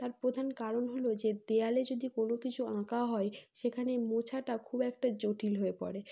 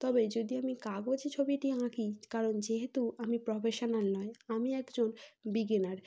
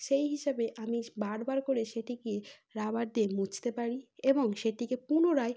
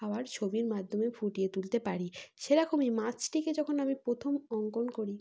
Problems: background sounds at intervals